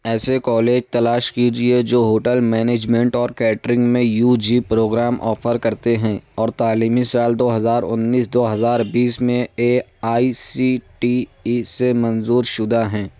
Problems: none marked